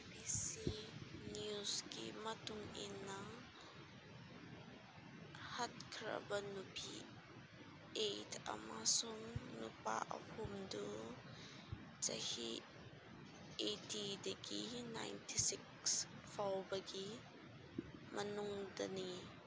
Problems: constant background noise, low volume